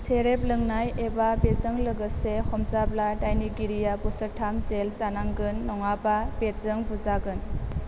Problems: constant background noise